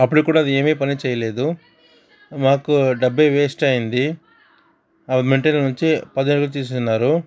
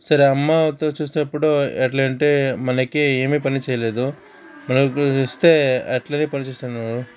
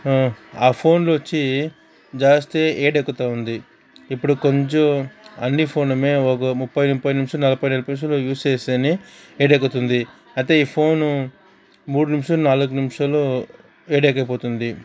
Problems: continuous background conversations